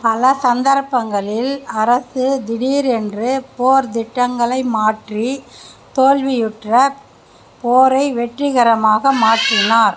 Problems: background conversations at intervals